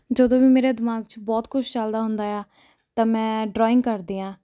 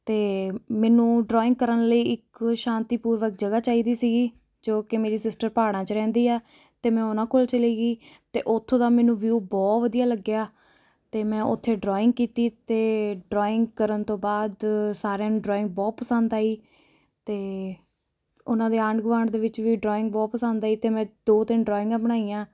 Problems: none marked